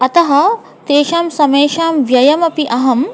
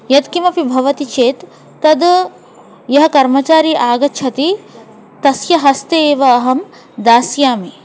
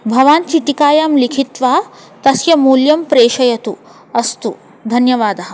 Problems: constant background noise